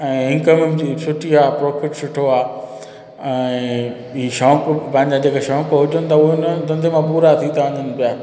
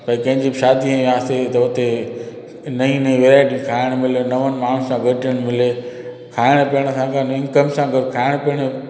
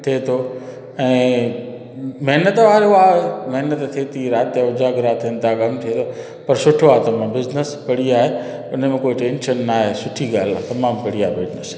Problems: constant background noise, echo